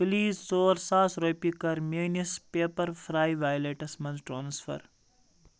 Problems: none marked